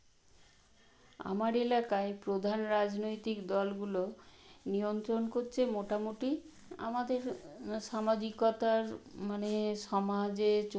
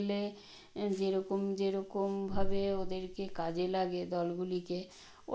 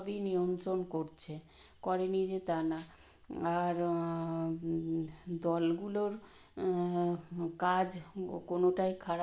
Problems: none marked